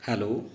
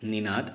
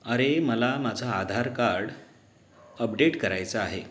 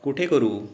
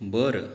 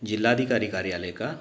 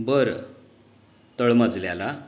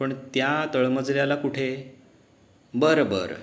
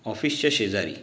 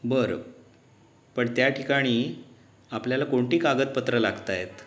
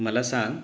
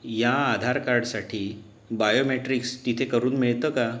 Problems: none marked